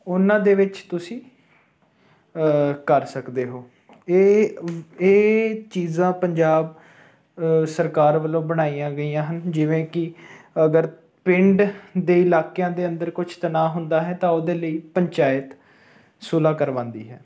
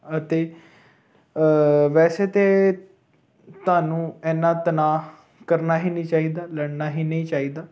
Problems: none marked